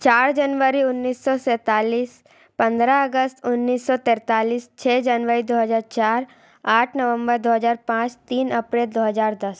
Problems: none marked